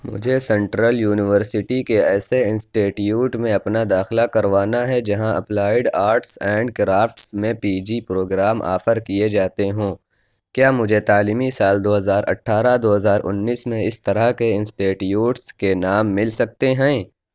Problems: none marked